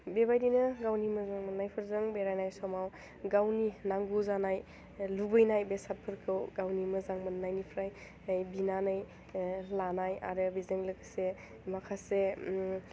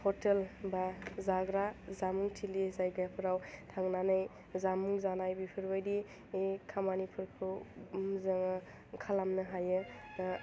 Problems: low volume